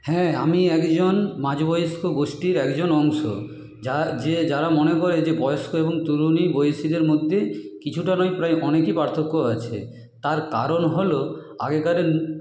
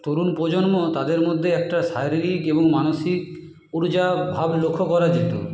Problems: background sounds at intervals